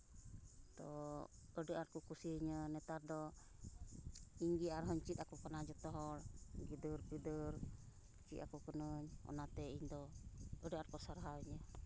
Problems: constant background noise